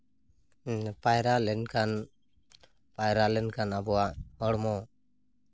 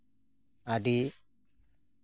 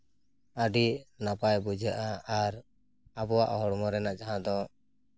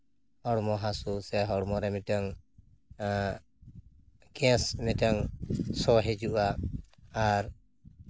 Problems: none marked